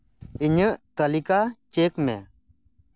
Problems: none marked